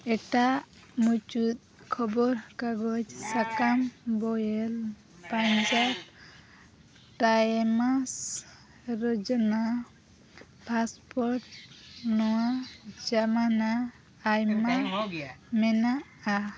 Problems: background sounds at intervals, background conversations at intervals